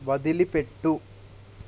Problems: constant background noise